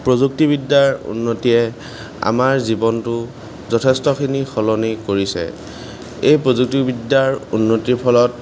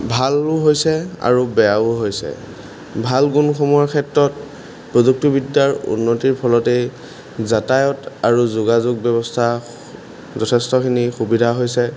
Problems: background sounds at intervals